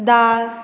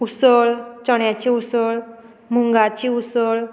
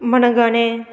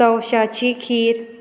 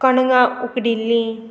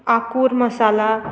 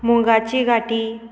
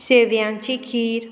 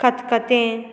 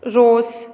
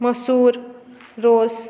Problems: constant background noise